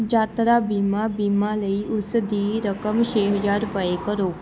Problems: none marked